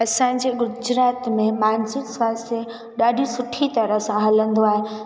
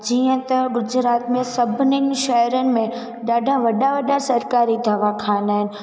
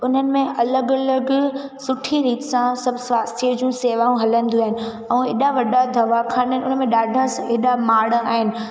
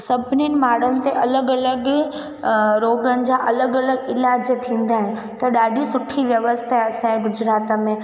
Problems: background sounds at intervals, echo